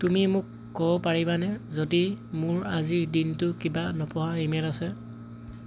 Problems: constant background noise